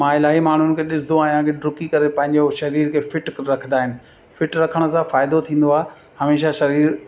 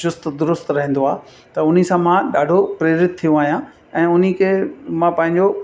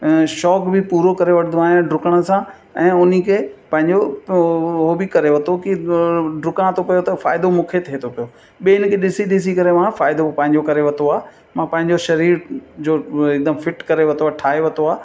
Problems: constant background noise, echo